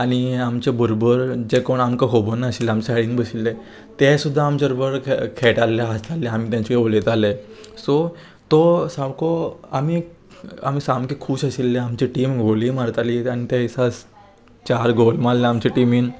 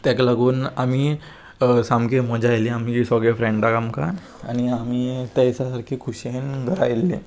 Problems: constant background noise